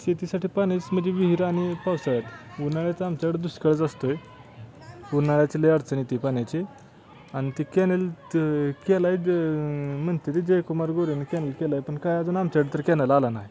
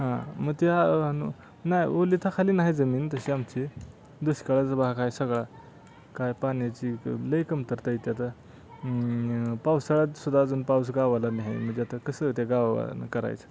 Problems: constant background noise, background conversations at intervals